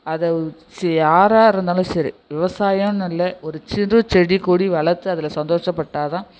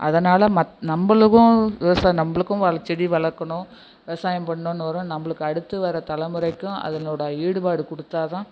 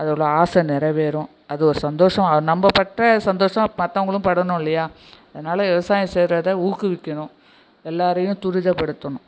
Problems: echo